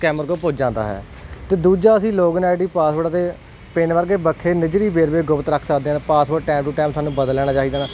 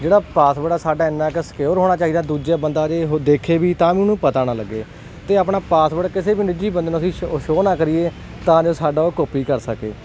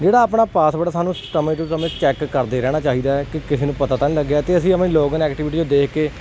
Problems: none marked